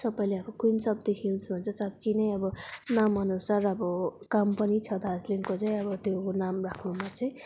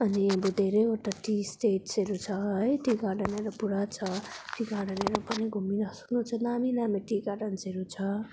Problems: none marked